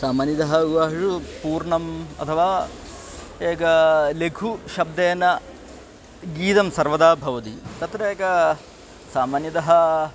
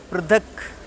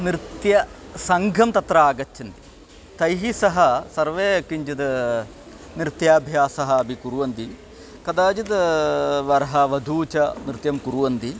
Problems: background conversations at intervals